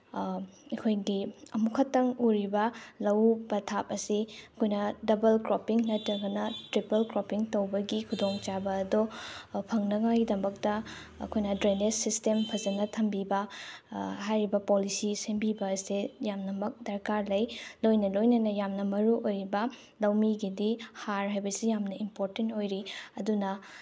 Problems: background sounds at intervals